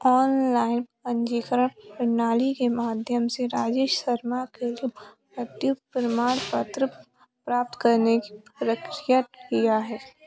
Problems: constant background noise